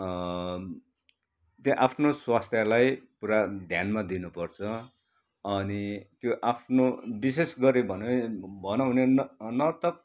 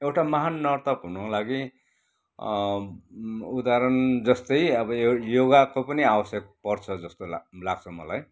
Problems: none marked